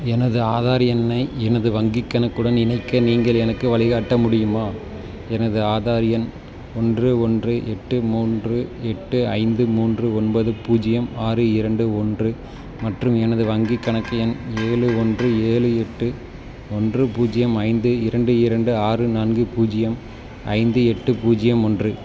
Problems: background sounds at intervals